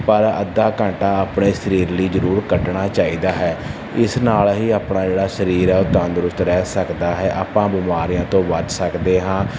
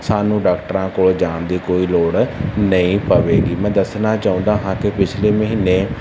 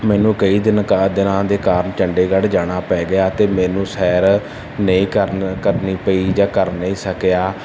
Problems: none marked